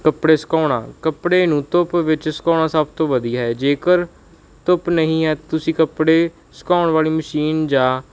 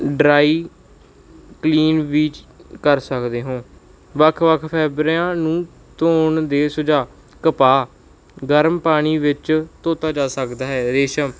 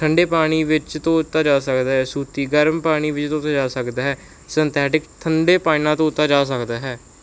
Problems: background sounds at intervals